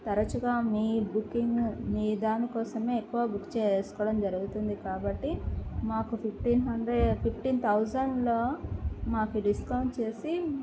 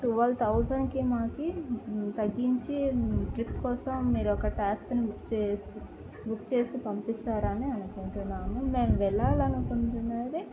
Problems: low volume